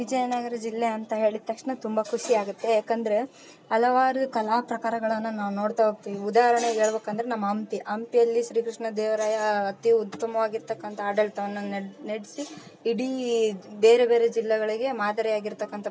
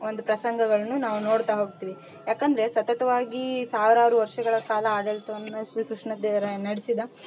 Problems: none marked